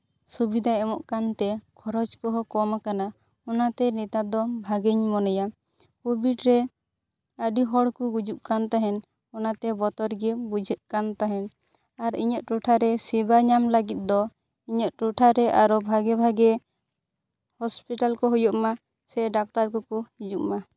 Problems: none marked